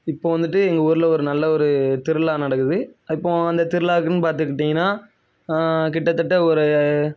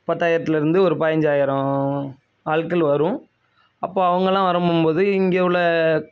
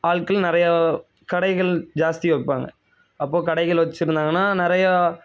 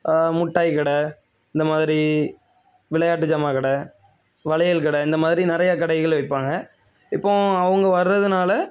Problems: none marked